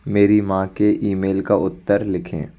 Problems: constant background noise